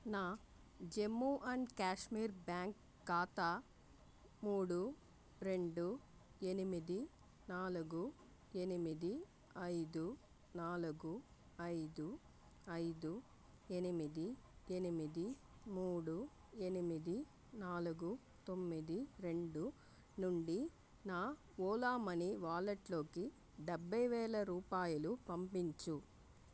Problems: low volume